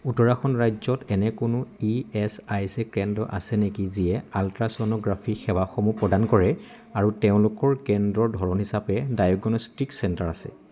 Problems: constant background noise, background conversations at intervals